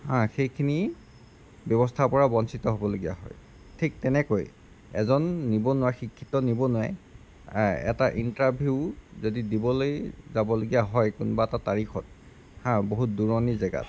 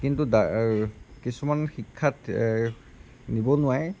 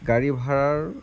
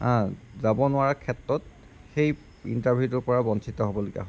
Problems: background sounds at intervals